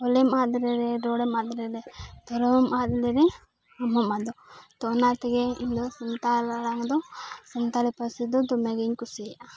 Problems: none marked